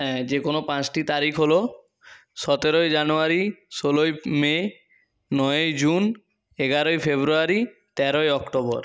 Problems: none marked